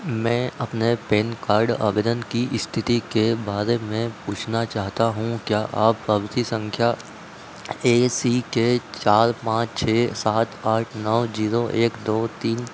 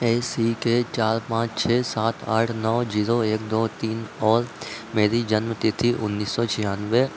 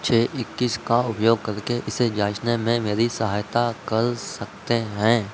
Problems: none marked